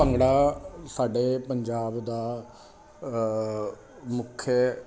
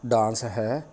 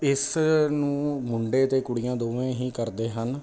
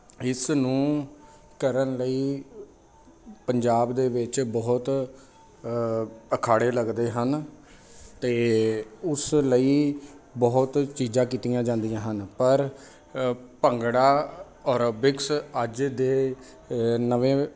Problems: none marked